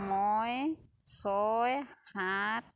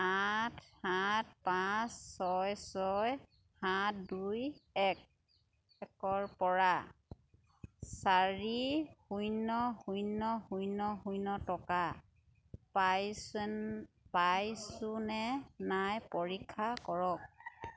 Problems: none marked